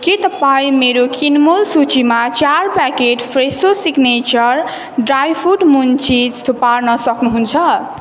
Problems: constant background noise